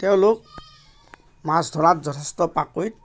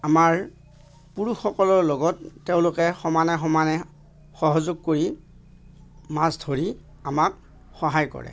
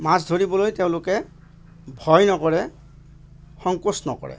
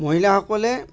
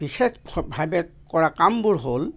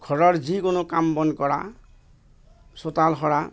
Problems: constant background noise, background conversations at intervals